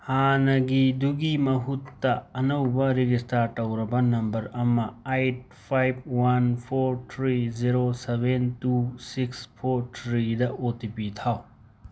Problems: background sounds at intervals